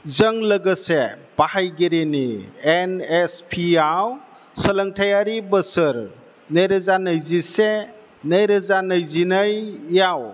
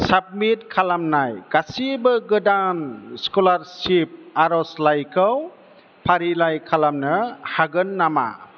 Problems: none marked